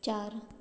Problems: background sounds at intervals